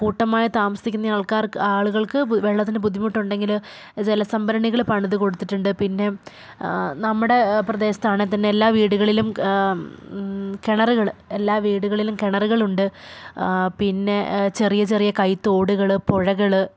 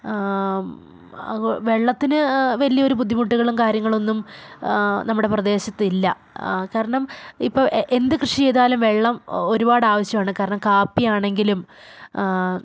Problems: none marked